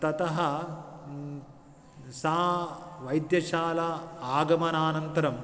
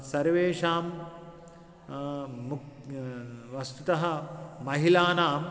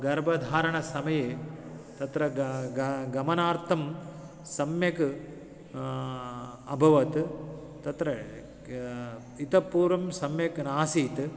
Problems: none marked